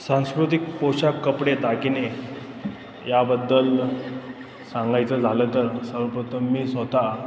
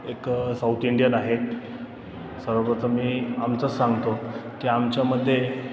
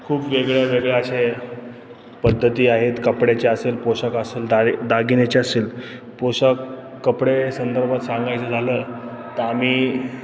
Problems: constant background noise, background conversations at intervals